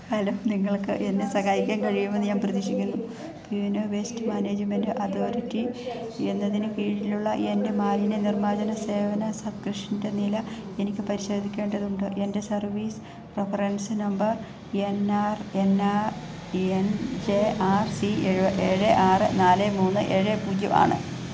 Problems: background sounds at intervals